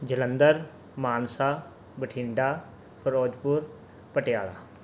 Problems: background sounds at intervals